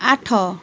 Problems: none marked